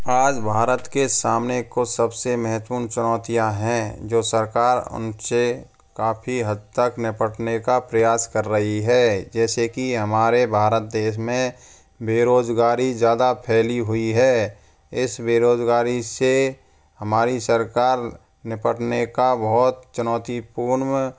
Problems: none marked